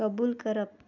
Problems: none marked